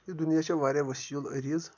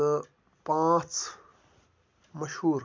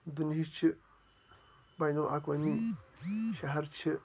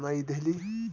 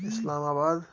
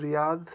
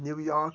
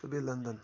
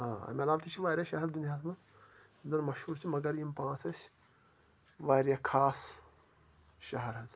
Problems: background sounds at intervals, low volume